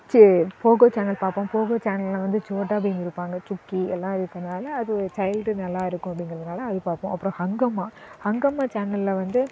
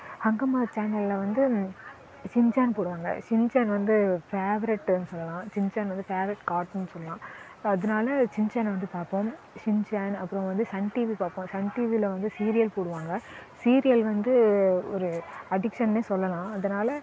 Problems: none marked